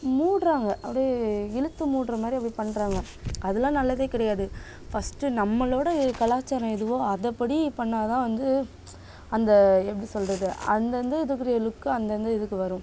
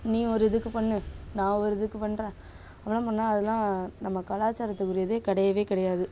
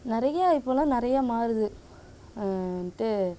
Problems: constant background noise